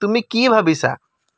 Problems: none marked